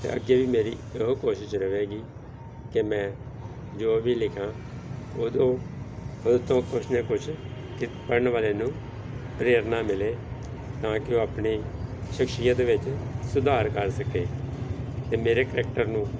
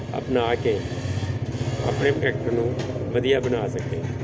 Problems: none marked